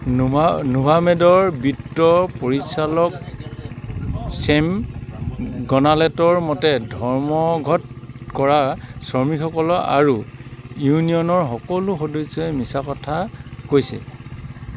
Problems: background sounds at intervals